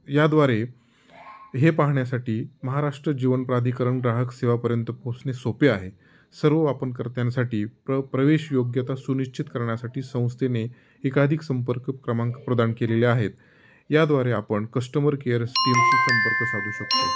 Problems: background sounds at intervals